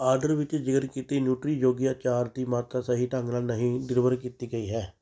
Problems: none marked